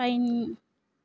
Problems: low volume